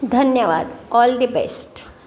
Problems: constant background noise, background conversations at intervals